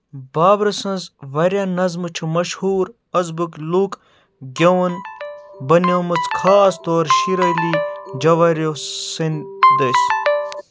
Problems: background sounds at intervals